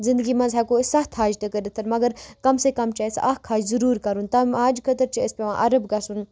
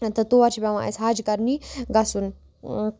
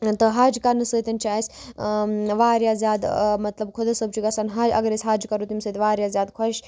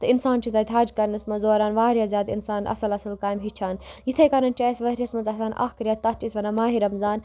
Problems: constant background noise